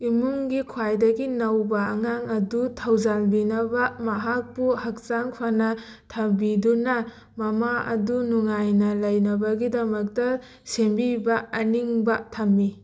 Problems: background sounds at intervals